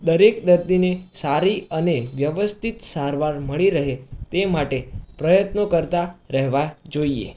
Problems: background sounds at intervals